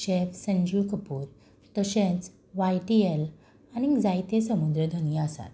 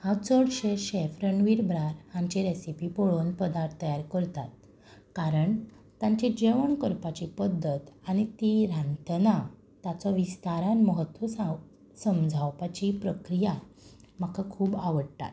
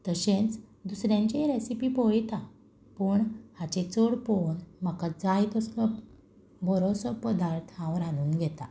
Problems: none marked